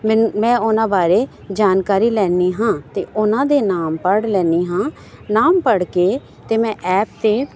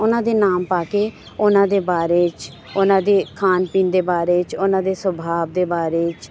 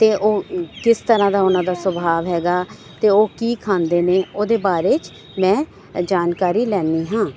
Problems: background sounds at intervals